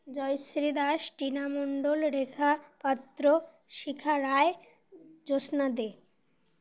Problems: constant background noise